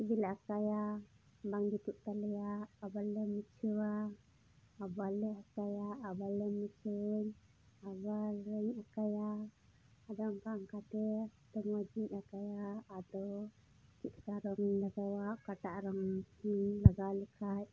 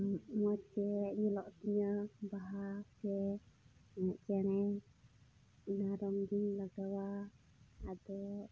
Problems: background sounds at intervals, low volume